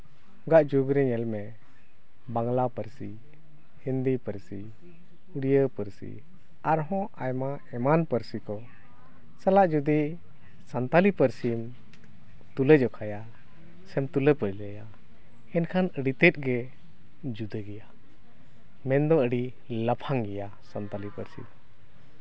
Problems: none marked